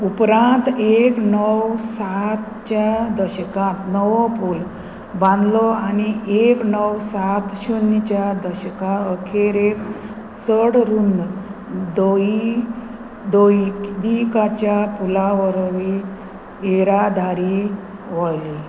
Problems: constant background noise